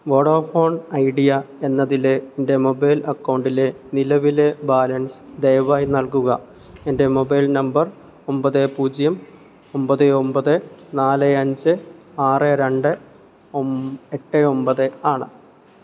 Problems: low volume